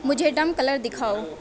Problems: constant background noise